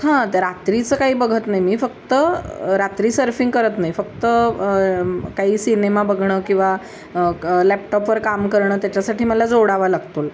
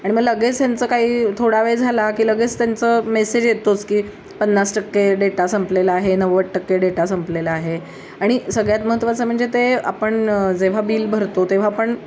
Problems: constant background noise